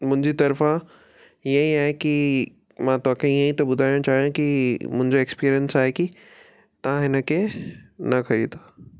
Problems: none marked